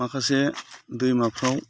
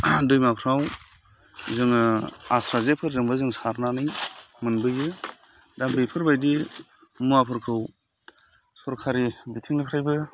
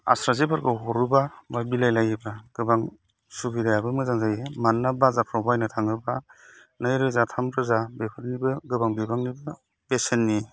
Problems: constant background noise